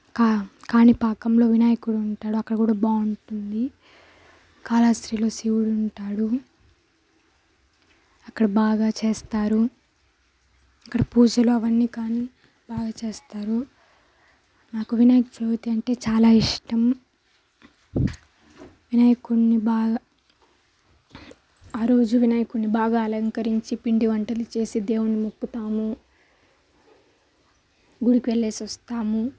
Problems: none marked